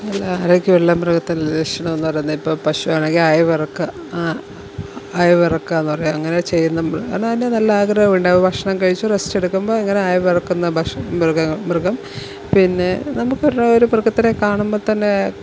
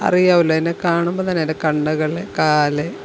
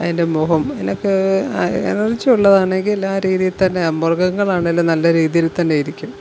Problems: none marked